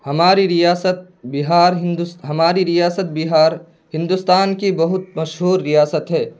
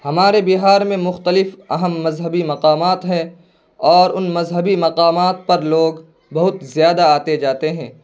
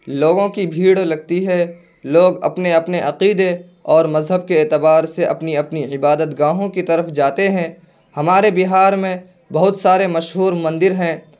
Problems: constant background noise